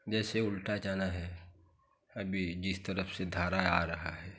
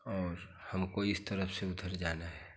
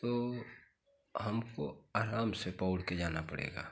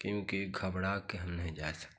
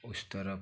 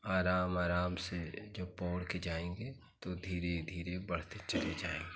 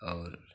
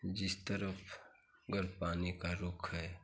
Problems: constant background noise